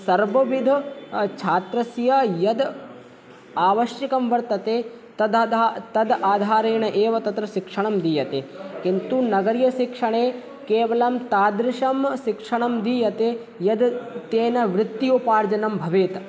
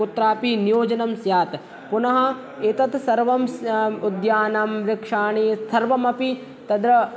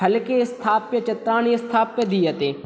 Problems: background sounds at intervals